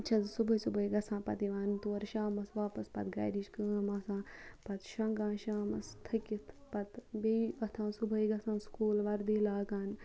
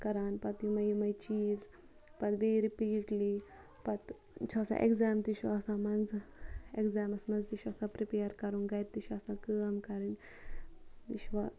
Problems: none marked